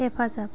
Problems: constant background noise